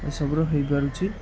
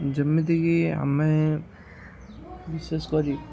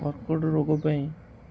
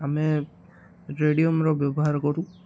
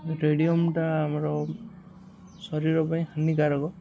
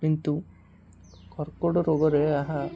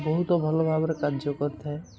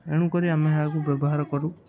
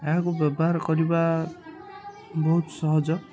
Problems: constant background noise, continuous background conversations